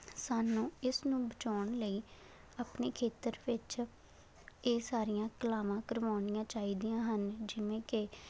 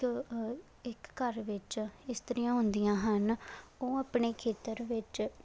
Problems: constant background noise